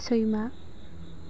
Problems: constant background noise